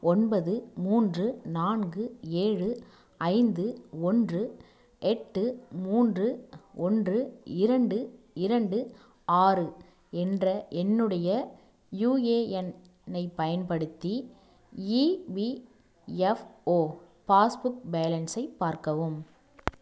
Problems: none marked